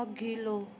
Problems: none marked